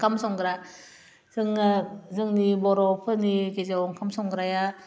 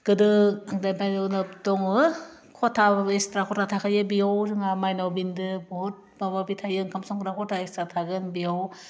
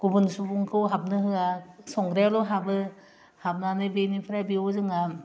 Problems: constant background noise